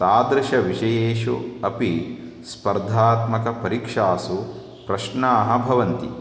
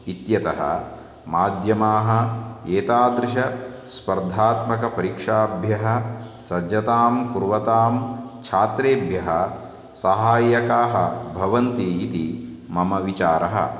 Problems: constant background noise